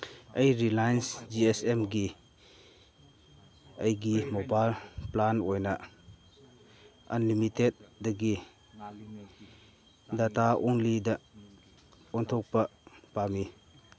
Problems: background sounds at intervals, background conversations at intervals